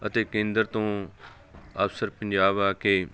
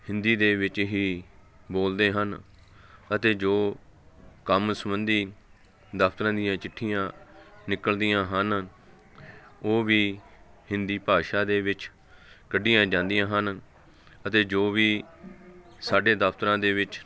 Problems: constant background noise